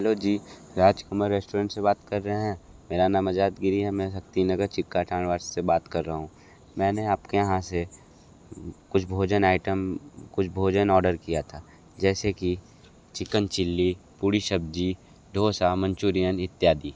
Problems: background sounds at intervals